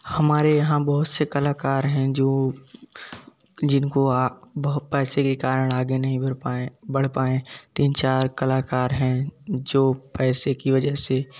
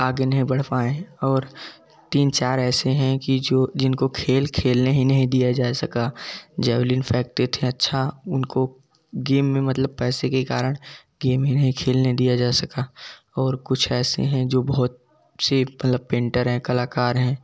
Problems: background sounds at intervals, background conversations at intervals